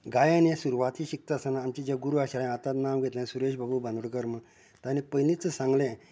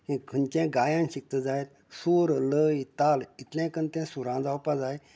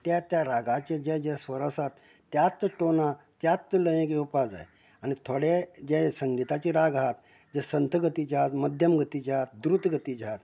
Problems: background conversations at intervals